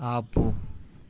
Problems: constant background noise